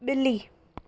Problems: none marked